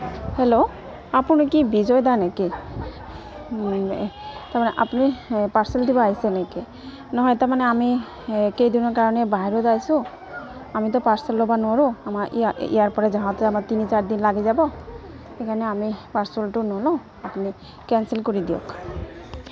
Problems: constant background noise, continuous background conversations